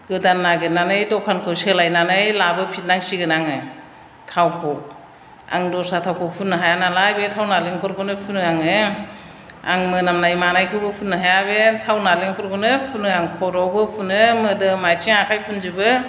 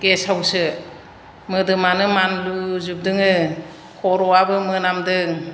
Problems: none marked